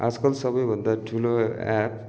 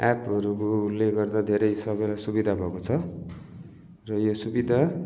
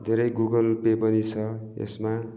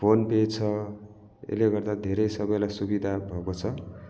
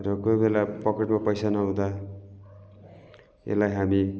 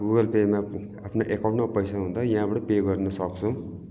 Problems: none marked